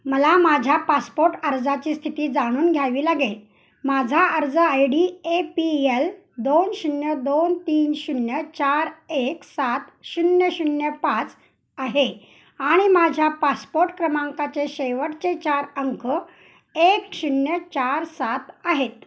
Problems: background sounds at intervals